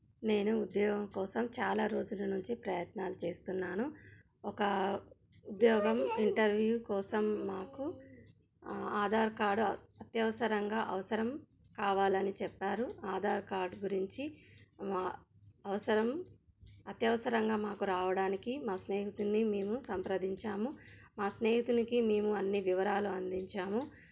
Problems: background sounds at intervals